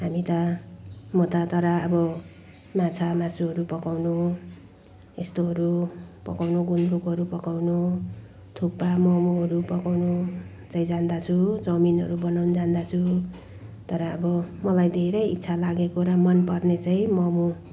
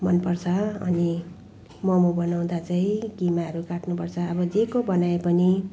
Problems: background sounds at intervals